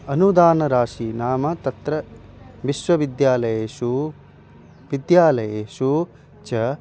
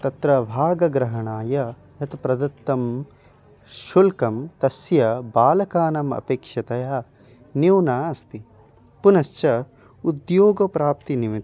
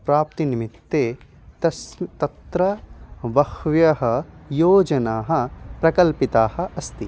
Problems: constant background noise